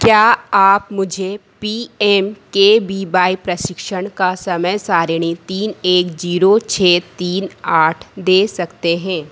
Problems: constant background noise